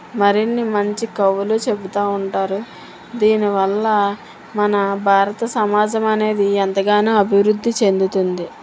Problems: constant background noise